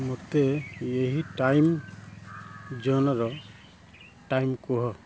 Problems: low volume